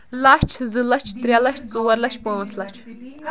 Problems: constant background noise